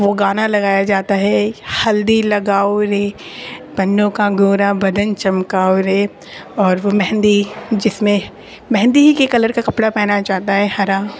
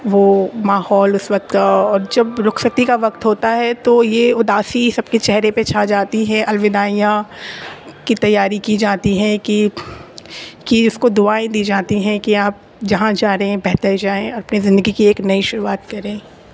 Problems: constant background noise